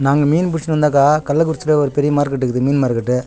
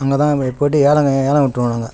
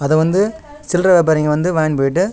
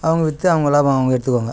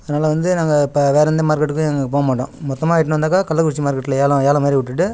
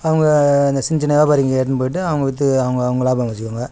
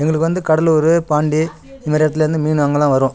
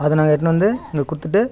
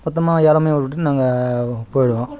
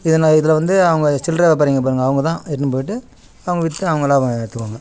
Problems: background conversations at intervals